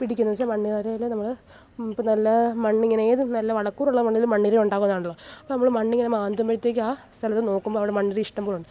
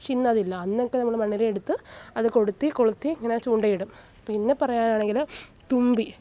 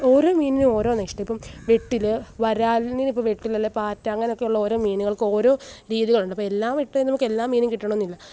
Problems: background sounds at intervals